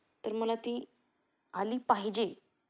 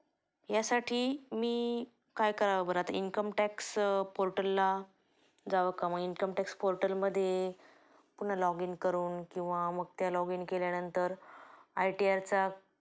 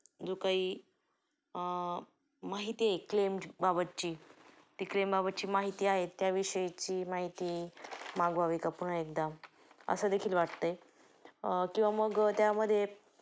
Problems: background sounds at intervals